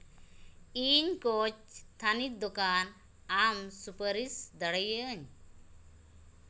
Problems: background sounds at intervals